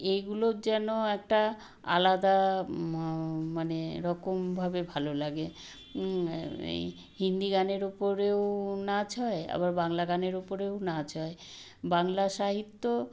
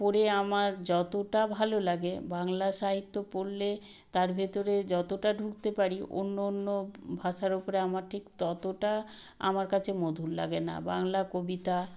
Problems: none marked